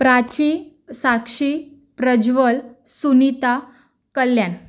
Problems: none marked